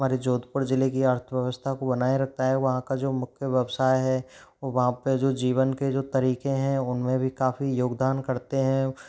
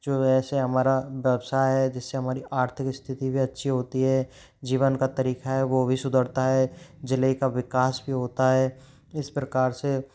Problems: none marked